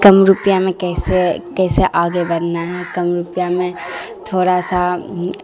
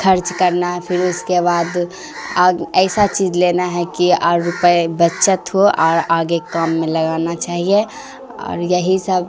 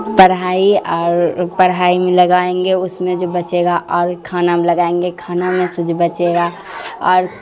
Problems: constant background noise